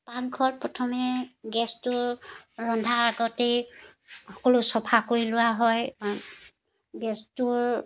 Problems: background sounds at intervals